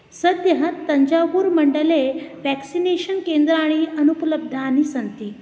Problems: none marked